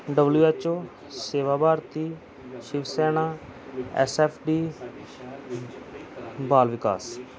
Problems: continuous background conversations